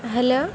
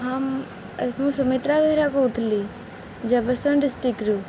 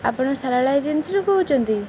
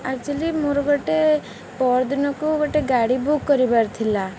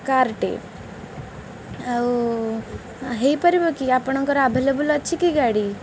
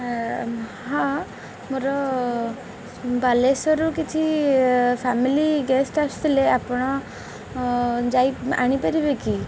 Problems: none marked